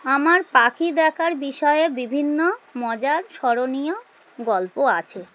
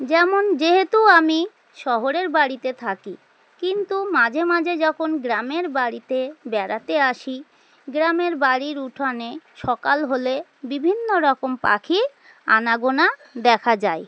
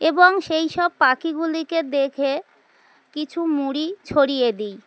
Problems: constant background noise